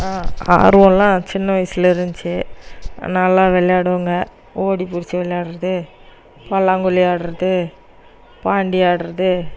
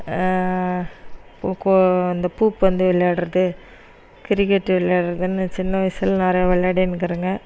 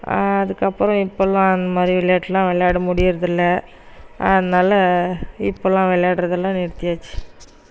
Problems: none marked